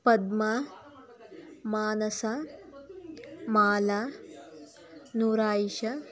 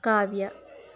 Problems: background conversations at intervals